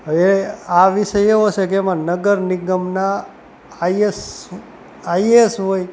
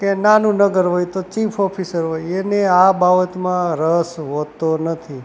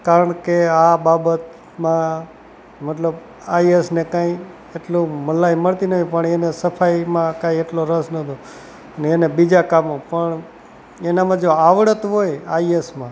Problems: constant background noise